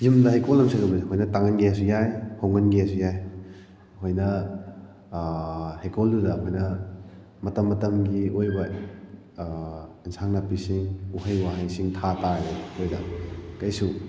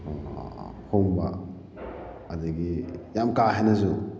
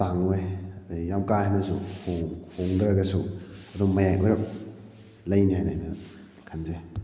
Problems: background sounds at intervals